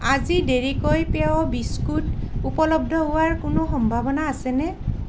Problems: none marked